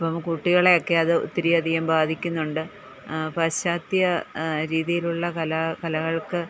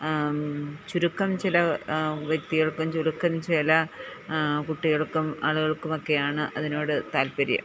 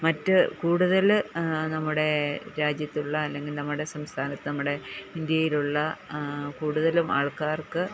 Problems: background conversations at intervals